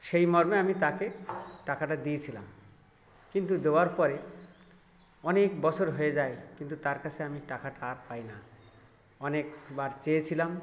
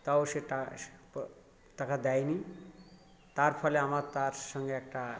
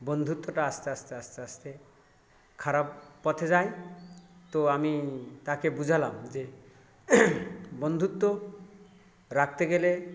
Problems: background sounds at intervals, continuous background conversations